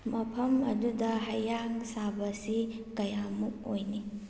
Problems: low volume